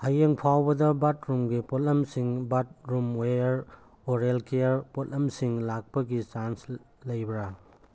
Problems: none marked